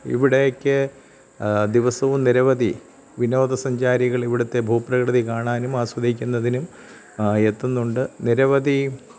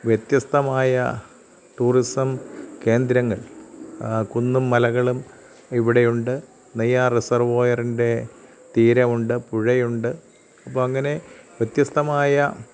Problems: none marked